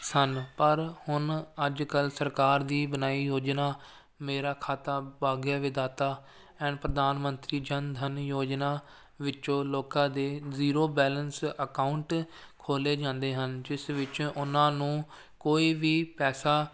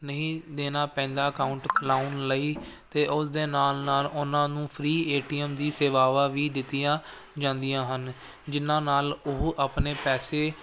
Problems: constant background noise